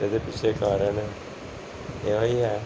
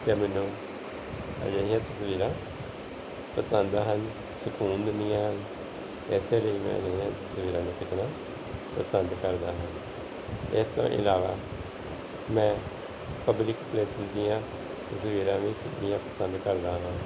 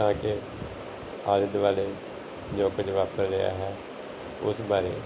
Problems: background sounds at intervals